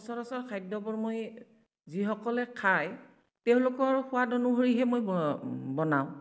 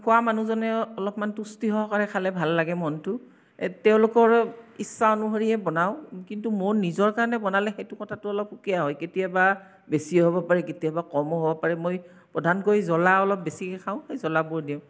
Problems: none marked